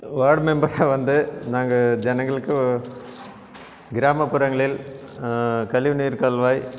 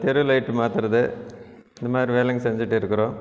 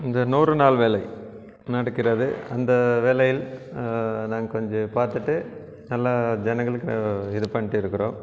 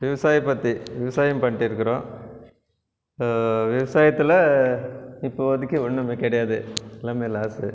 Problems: none marked